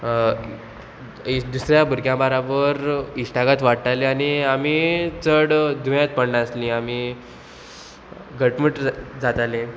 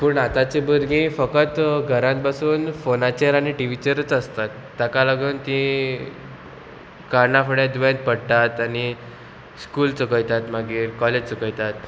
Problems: none marked